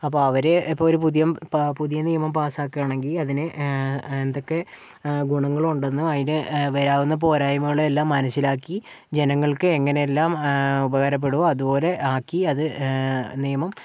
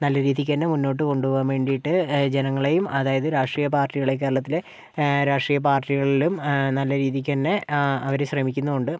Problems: none marked